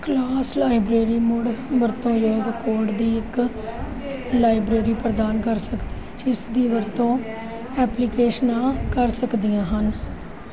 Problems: continuous background conversations